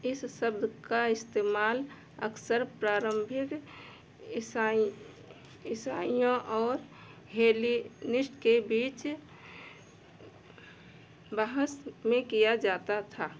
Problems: none marked